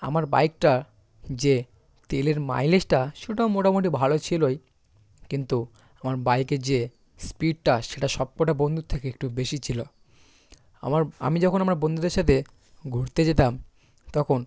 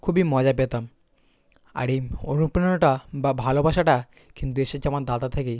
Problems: constant background noise, background conversations at intervals